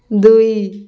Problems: background sounds at intervals